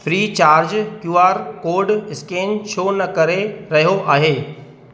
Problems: constant background noise, echo